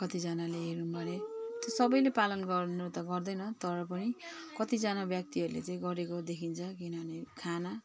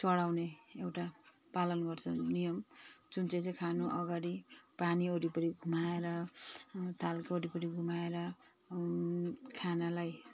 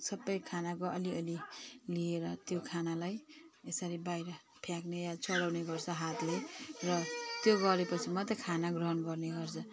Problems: constant background noise